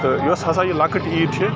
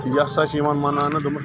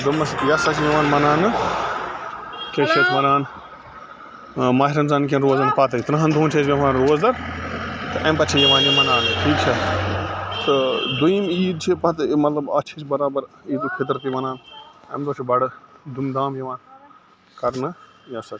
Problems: constant background noise